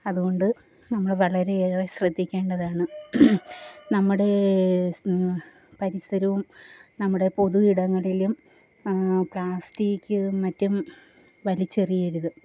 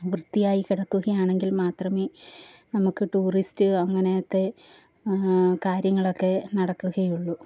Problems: low volume